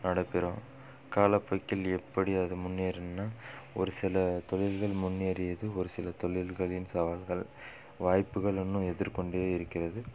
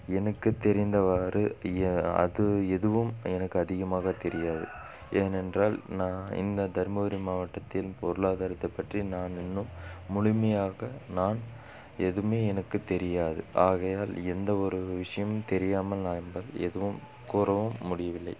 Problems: background sounds at intervals